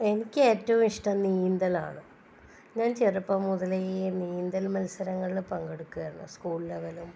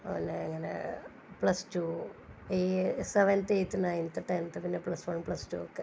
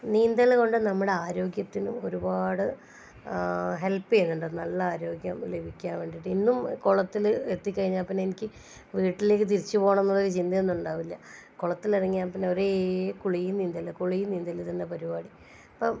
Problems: low volume